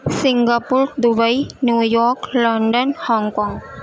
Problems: background sounds at intervals